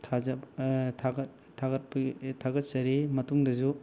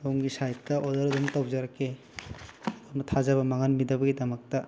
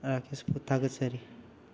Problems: background sounds at intervals